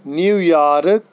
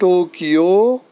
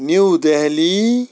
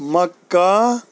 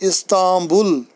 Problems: none marked